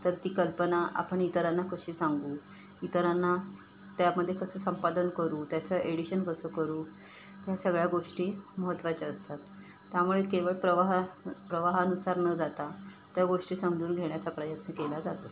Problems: constant background noise